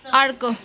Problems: constant background noise, continuous background conversations